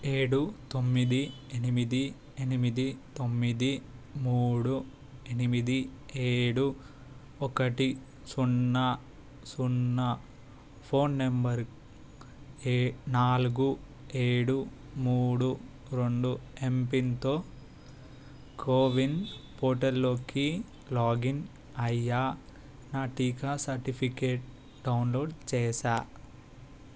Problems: constant background noise